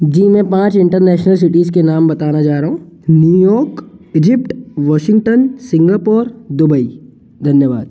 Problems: background sounds at intervals